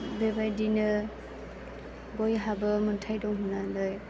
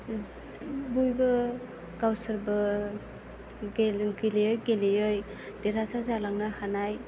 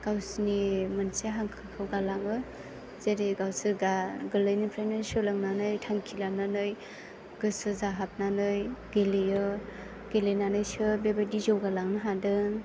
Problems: constant background noise